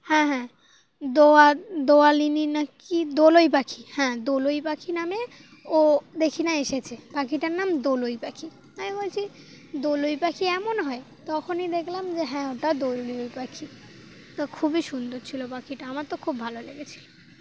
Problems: none marked